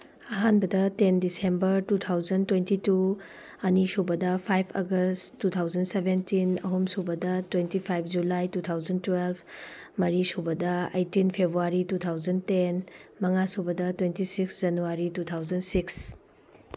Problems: background sounds at intervals